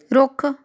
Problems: background conversations at intervals